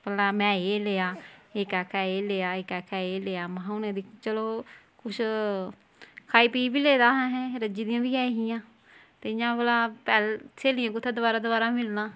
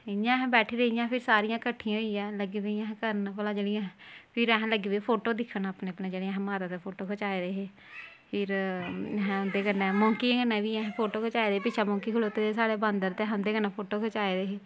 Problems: none marked